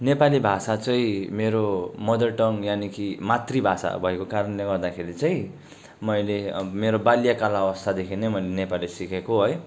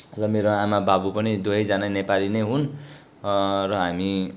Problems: background sounds at intervals